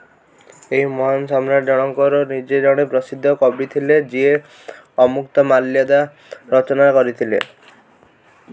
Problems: background sounds at intervals